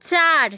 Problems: none marked